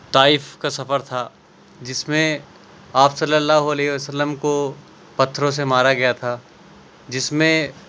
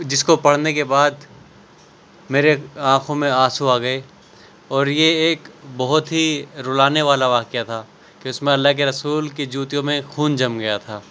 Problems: none marked